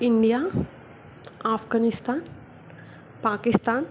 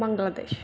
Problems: background sounds at intervals